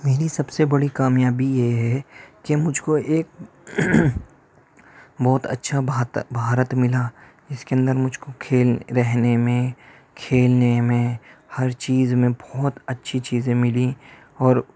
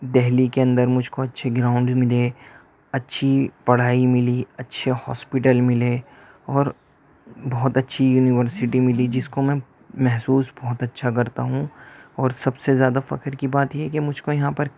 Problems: background sounds at intervals